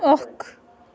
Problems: none marked